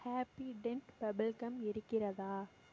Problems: low volume